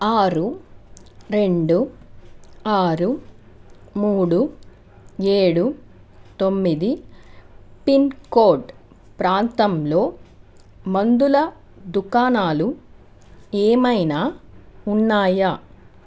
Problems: constant background noise